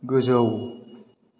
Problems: constant background noise